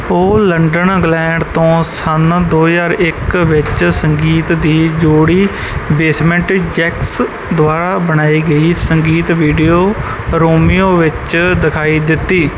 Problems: none marked